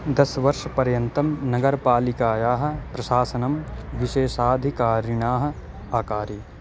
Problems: constant background noise